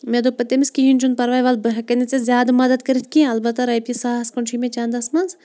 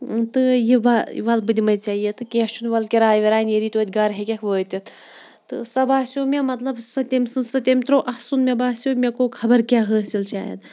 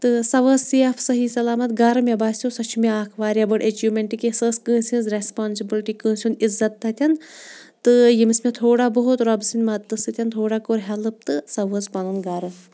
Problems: background sounds at intervals